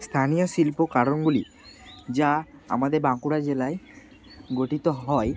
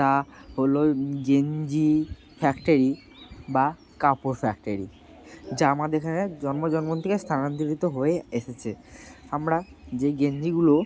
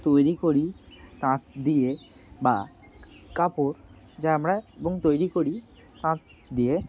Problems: none marked